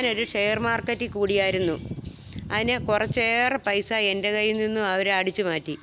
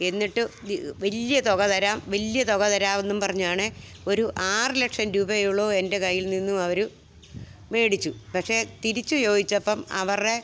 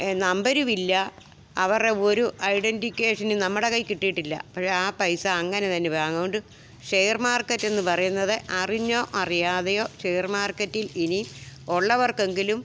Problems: background sounds at intervals